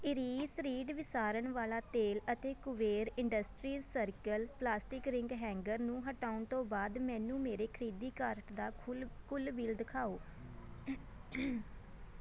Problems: background sounds at intervals, continuous background conversations